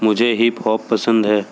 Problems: constant background noise